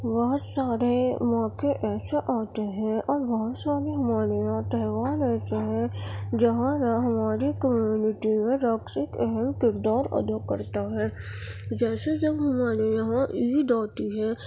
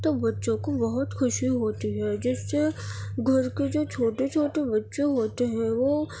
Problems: background sounds at intervals